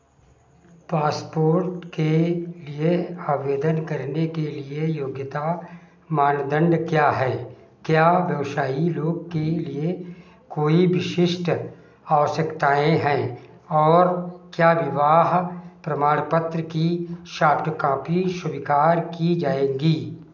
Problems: background sounds at intervals, echo